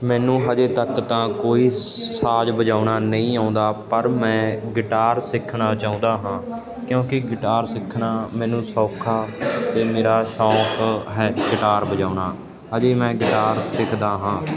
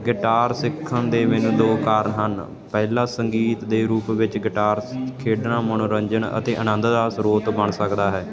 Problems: none marked